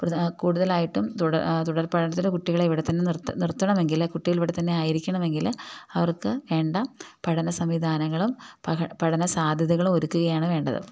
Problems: none marked